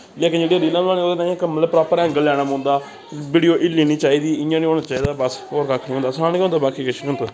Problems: constant background noise